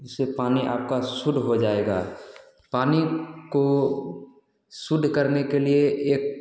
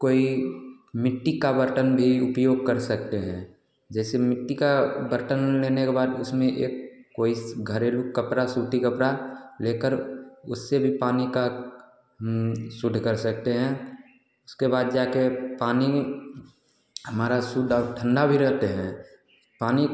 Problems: none marked